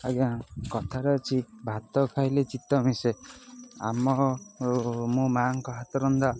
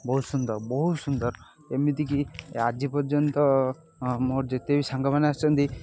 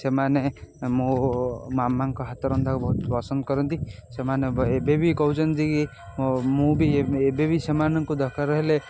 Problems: constant background noise